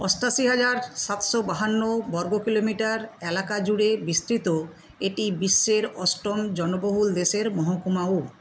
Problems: constant background noise